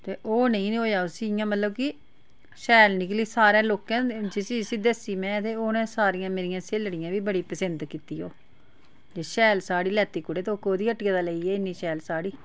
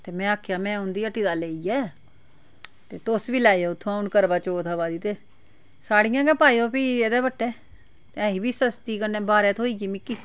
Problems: none marked